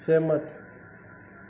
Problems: none marked